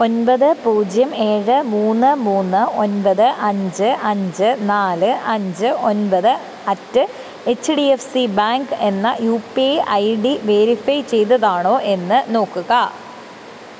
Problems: constant background noise